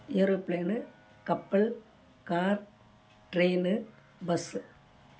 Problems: low volume